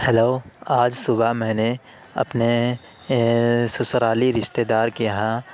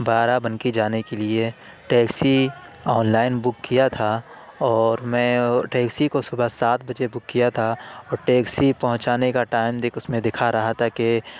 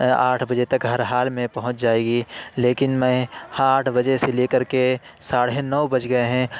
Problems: none marked